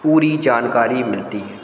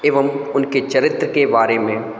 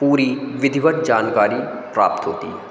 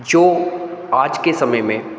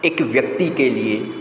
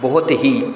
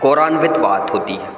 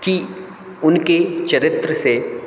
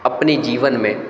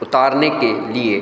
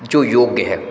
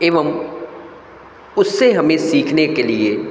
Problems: constant background noise, echo